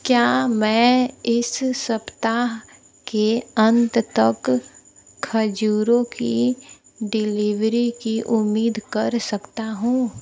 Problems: low volume